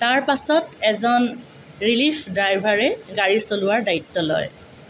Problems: constant background noise